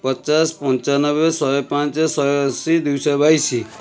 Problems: none marked